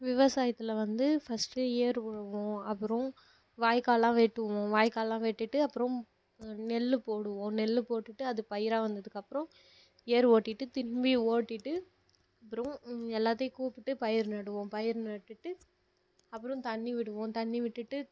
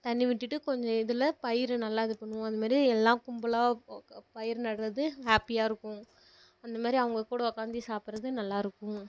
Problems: low volume